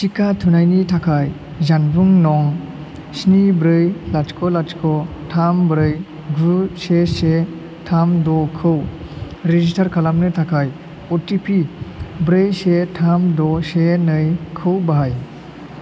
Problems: constant background noise